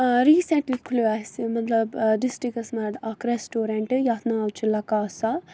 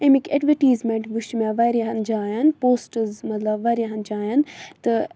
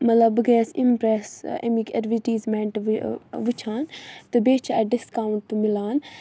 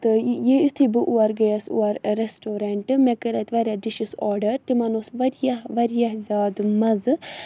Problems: constant background noise